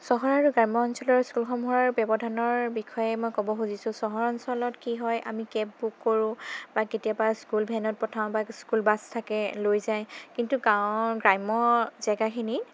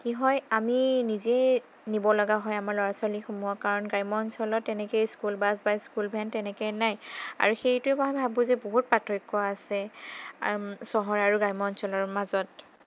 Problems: none marked